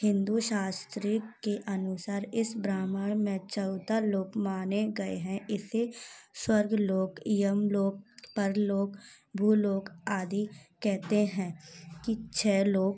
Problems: none marked